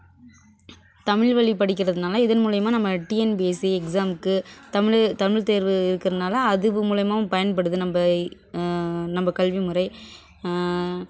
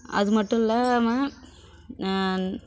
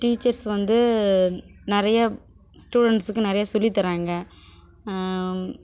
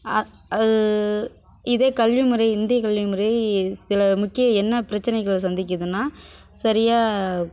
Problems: none marked